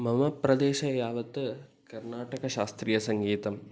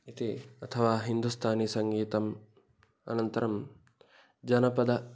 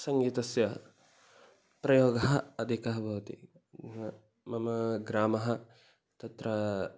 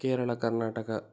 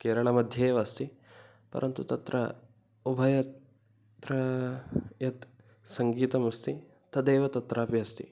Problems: none marked